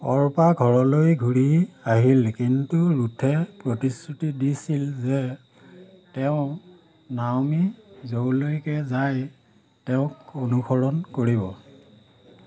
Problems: constant background noise